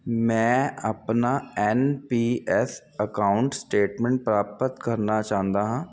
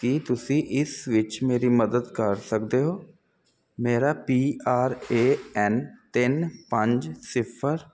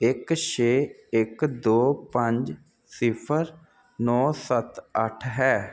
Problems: constant background noise